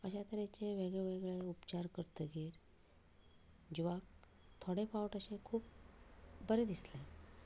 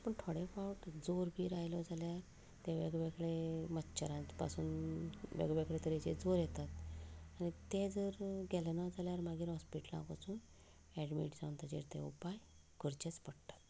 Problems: background conversations at intervals, low volume